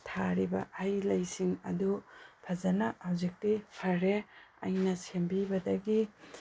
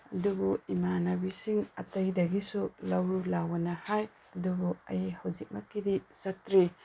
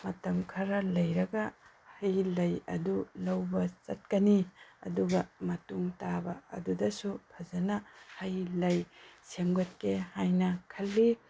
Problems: background sounds at intervals